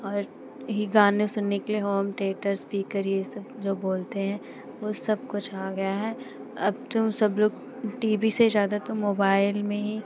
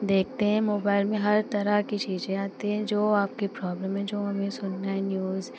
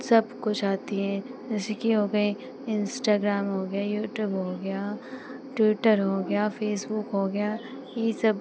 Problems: constant background noise